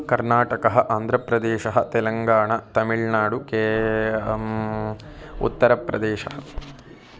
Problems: continuous background conversations